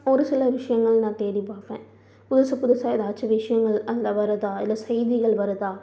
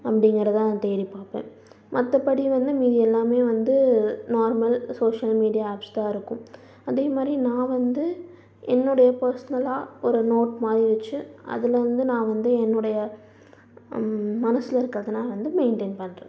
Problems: background sounds at intervals, low volume